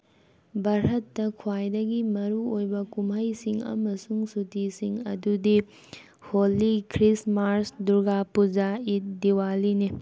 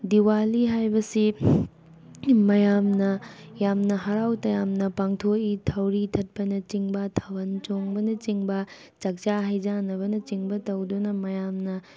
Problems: background sounds at intervals